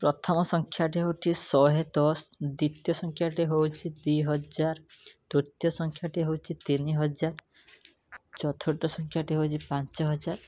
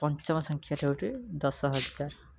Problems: background sounds at intervals